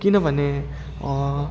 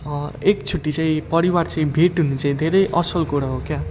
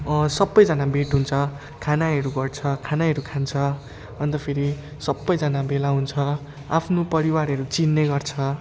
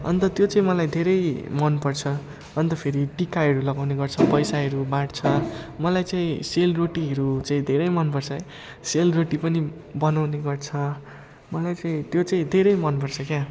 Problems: constant background noise